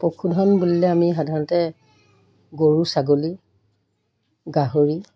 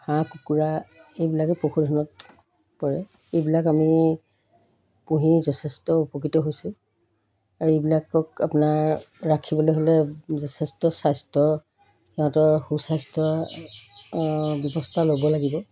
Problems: background sounds at intervals